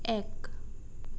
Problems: constant background noise